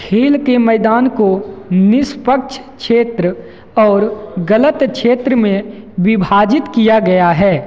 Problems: constant background noise, echo